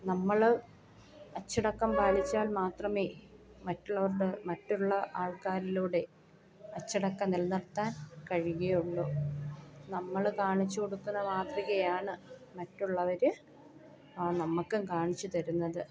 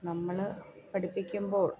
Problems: continuous background conversations